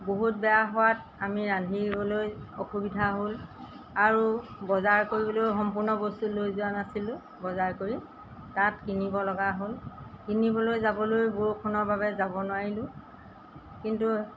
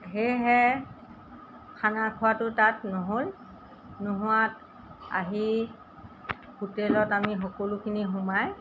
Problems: none marked